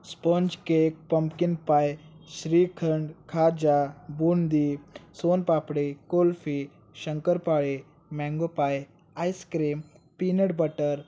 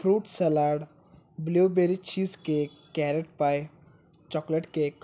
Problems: background sounds at intervals